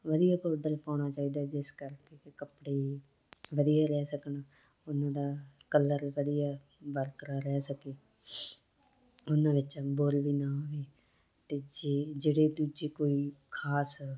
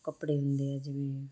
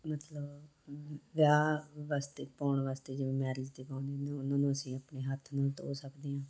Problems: constant background noise